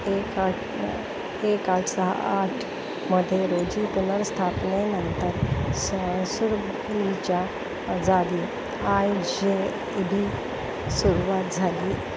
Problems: constant background noise